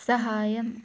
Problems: none marked